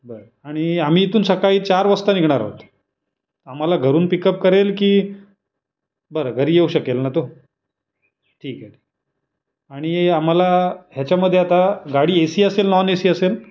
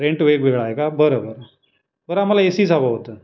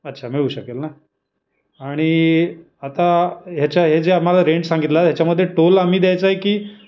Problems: constant background noise, background conversations at intervals